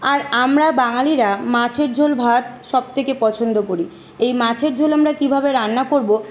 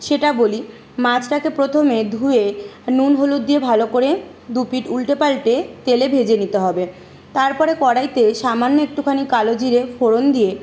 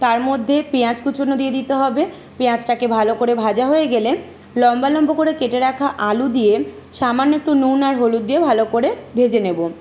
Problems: constant background noise